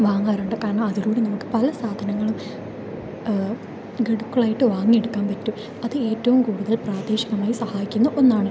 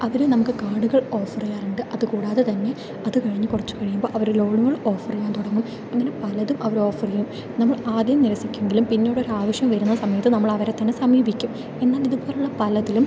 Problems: low volume